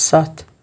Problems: none marked